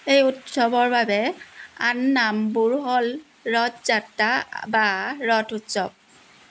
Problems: constant background noise